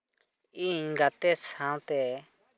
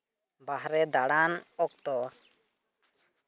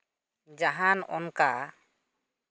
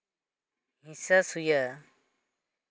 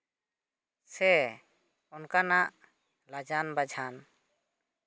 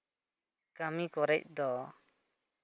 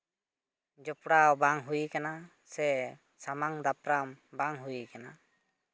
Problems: none marked